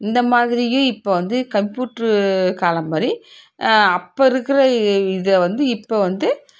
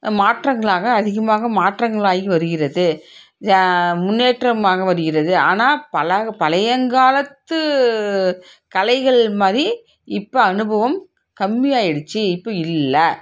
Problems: background sounds at intervals